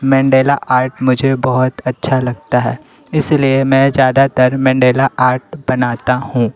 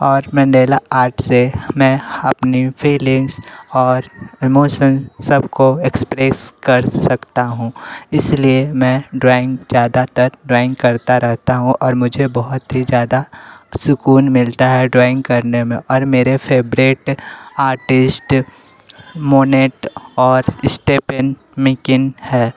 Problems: constant background noise, background conversations at intervals